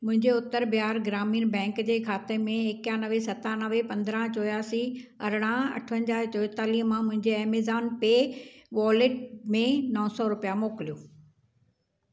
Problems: none marked